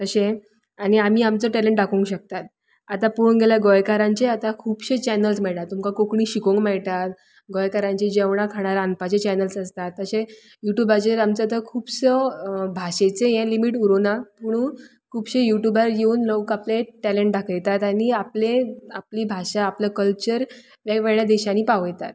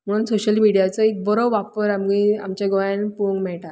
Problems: background sounds at intervals